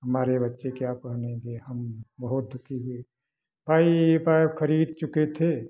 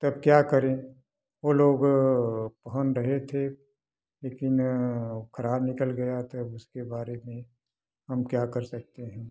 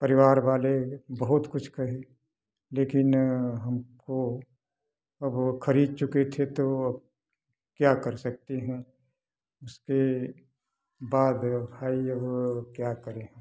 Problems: none marked